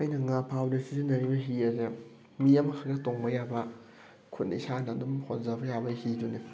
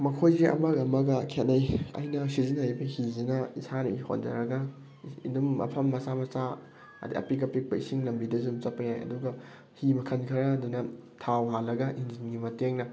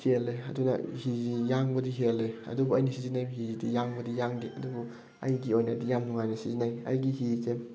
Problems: none marked